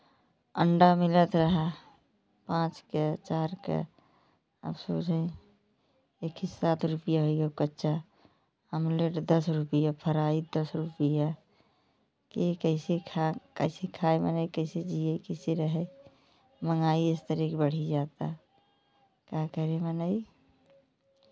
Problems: none marked